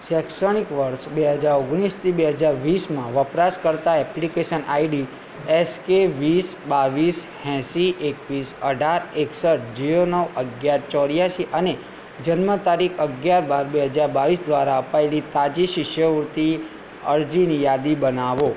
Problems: constant background noise